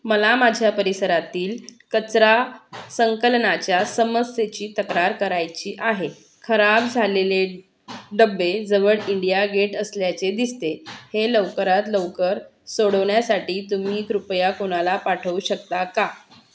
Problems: background sounds at intervals